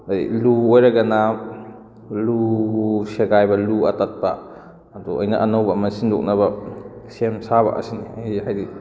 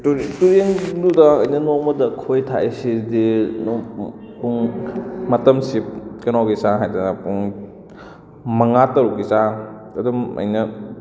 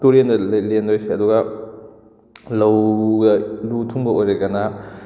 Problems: background sounds at intervals